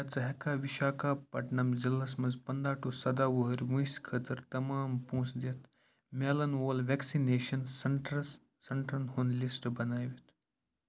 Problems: constant background noise